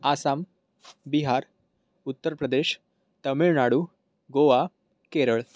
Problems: none marked